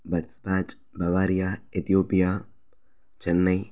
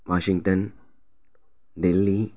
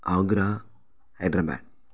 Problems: background sounds at intervals